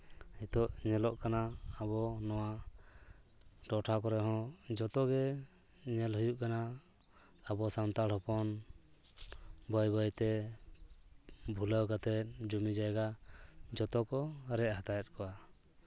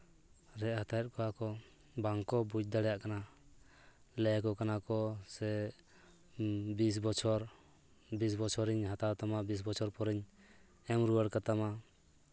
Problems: constant background noise